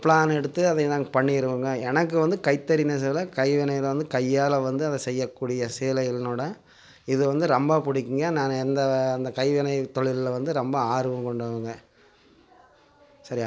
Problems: background sounds at intervals